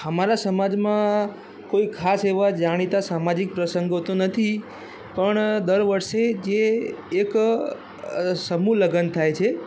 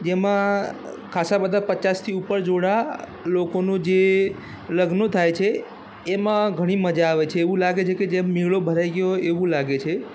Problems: constant background noise